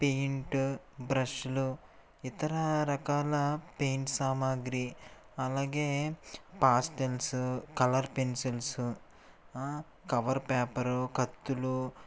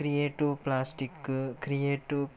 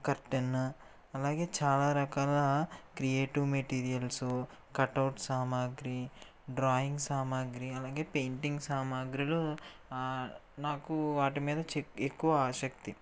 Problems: none marked